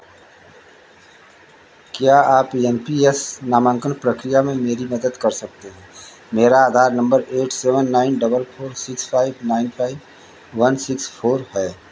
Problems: constant background noise